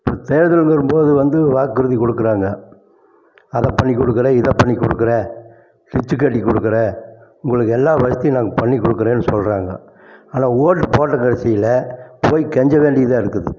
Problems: constant background noise